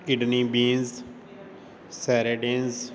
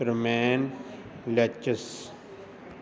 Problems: constant background noise